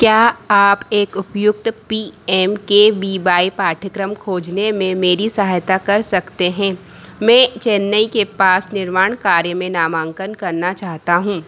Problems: none marked